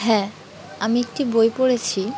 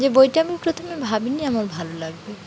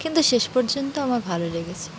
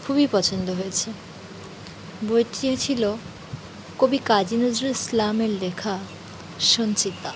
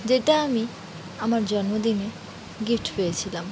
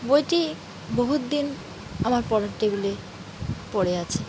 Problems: none marked